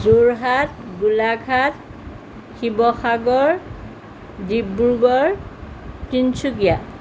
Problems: none marked